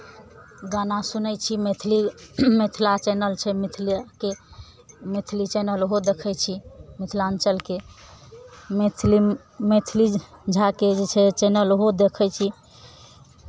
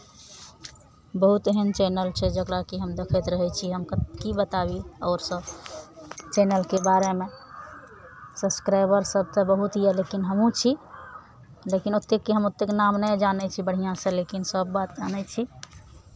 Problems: background conversations at intervals